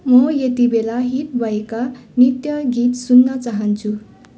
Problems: none marked